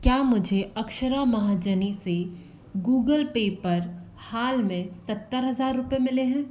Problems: constant background noise